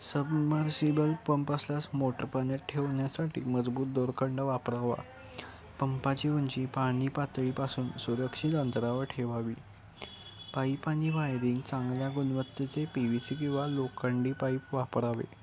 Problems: constant background noise, continuous background conversations